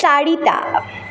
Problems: constant background noise